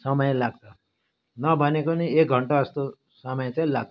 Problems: background sounds at intervals